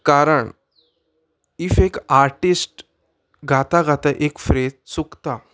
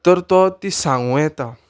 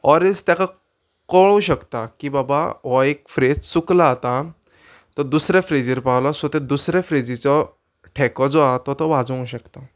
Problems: background sounds at intervals